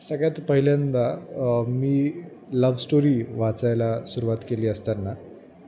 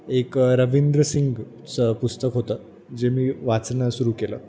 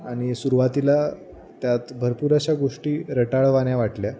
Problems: none marked